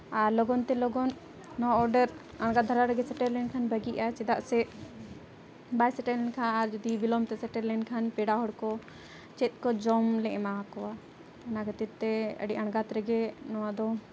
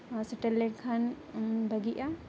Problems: background conversations at intervals